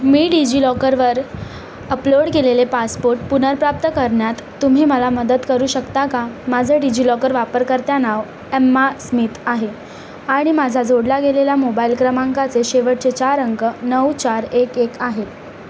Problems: constant background noise